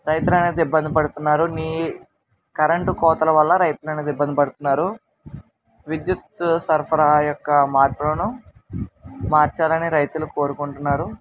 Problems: constant background noise